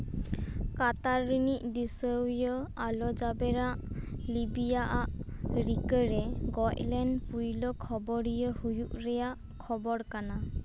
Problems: background sounds at intervals